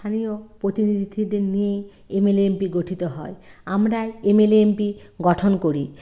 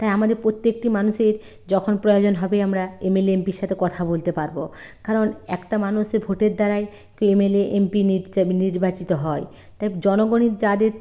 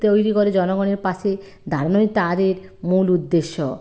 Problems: none marked